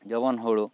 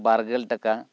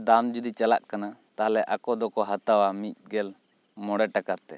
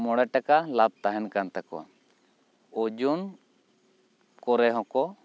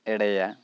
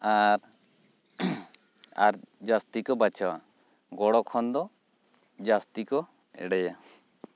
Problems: none marked